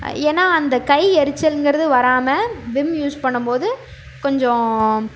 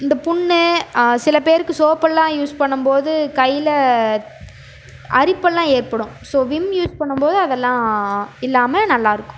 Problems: background sounds at intervals